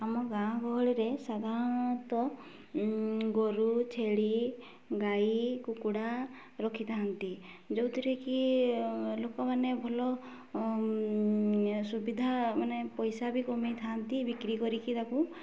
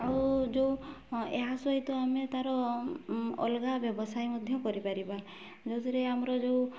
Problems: low volume